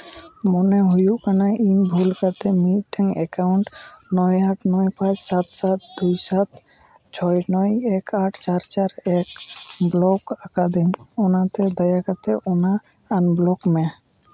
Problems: none marked